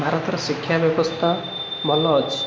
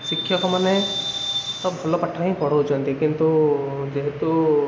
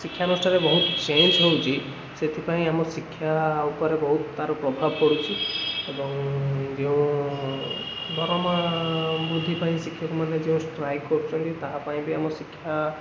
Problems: constant background noise